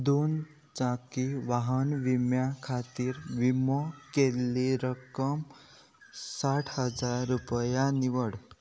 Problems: none marked